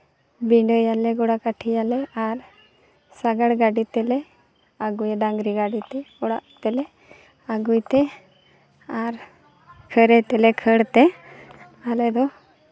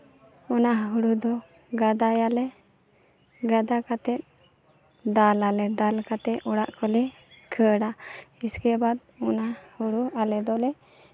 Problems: none marked